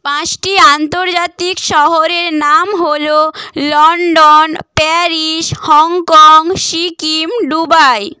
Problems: none marked